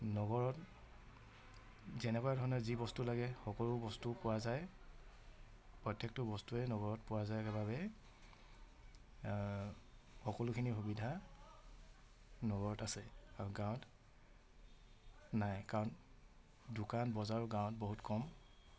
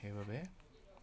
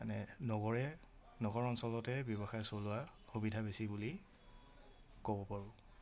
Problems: none marked